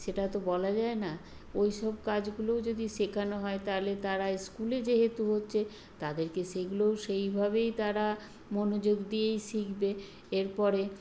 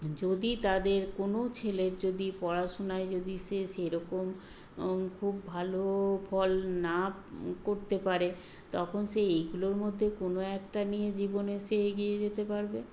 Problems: constant background noise